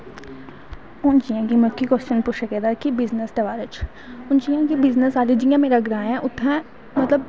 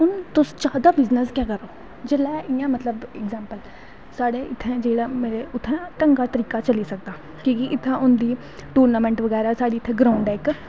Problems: constant background noise